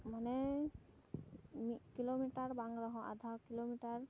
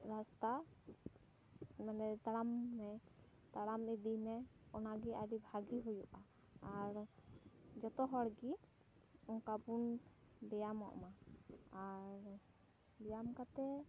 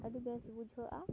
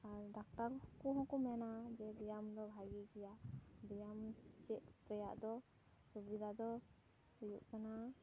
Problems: background sounds at intervals, low volume